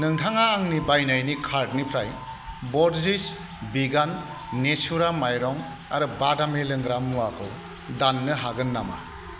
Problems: none marked